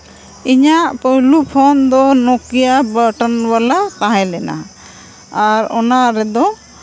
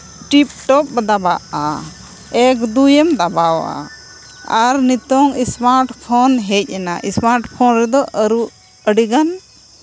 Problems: constant background noise